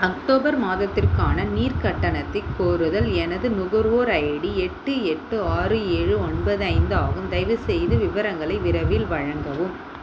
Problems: constant background noise